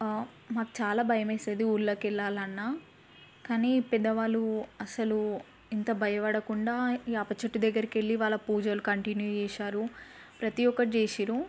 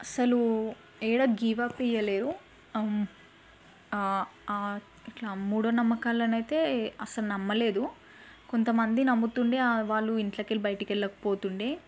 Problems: none marked